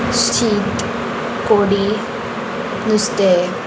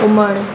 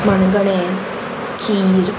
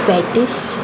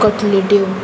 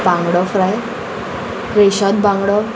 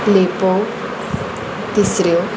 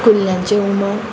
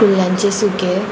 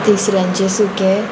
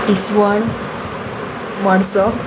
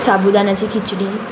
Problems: none marked